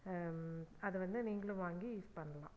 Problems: low volume